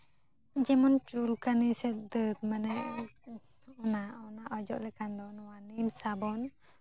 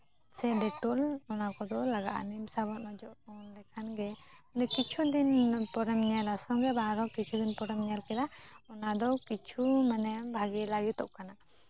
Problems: none marked